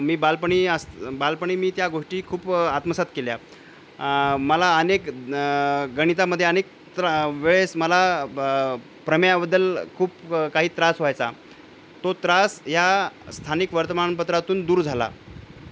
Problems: constant background noise, low volume